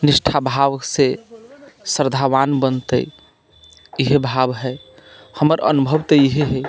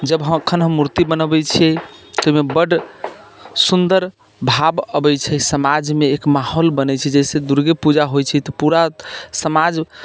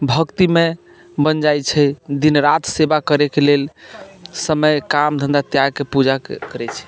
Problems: constant background noise